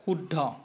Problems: constant background noise